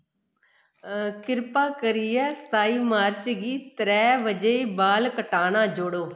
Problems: echo